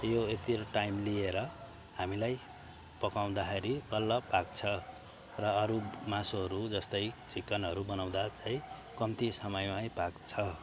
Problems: none marked